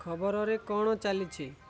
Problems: low volume